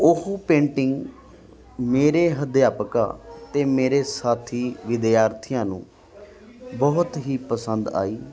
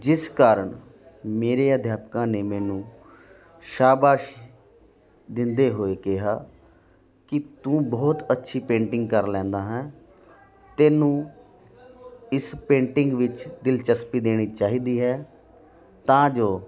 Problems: constant background noise